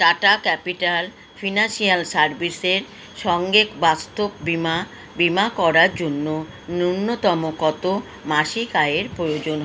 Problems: constant background noise